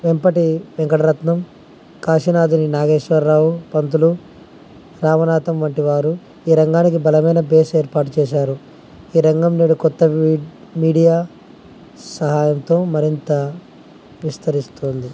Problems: constant background noise